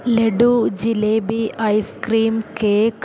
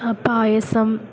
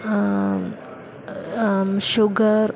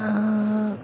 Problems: constant background noise